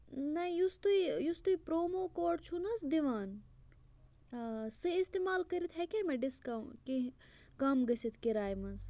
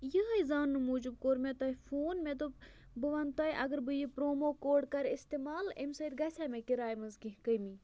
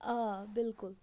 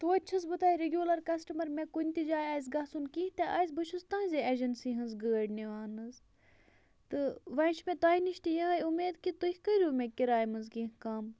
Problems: none marked